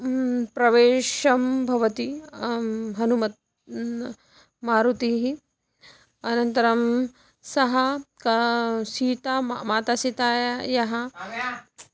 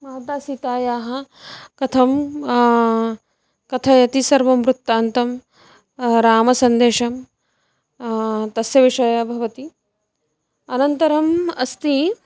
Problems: background sounds at intervals